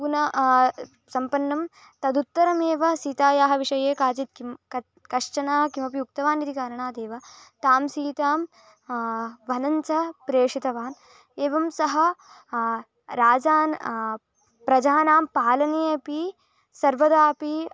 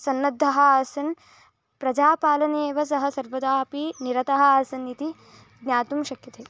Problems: none marked